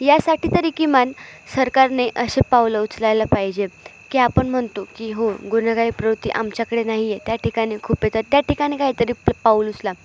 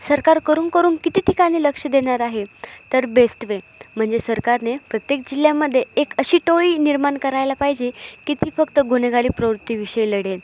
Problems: constant background noise, background conversations at intervals, echo